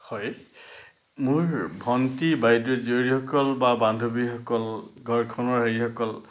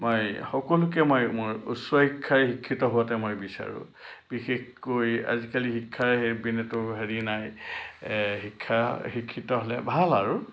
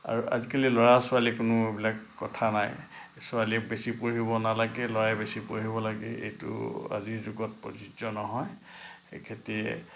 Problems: low volume